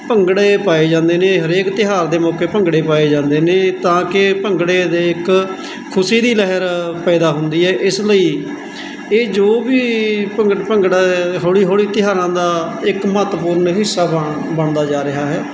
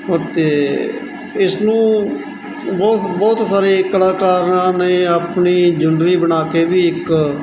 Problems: constant background noise